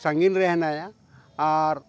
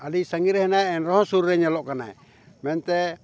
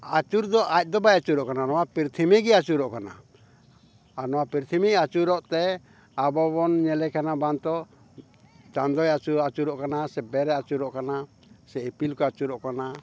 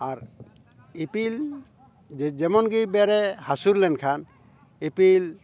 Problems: background conversations at intervals